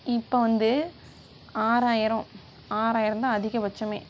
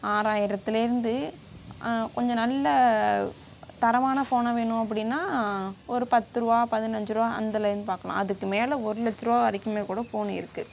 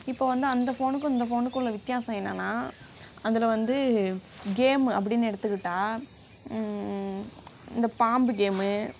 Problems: none marked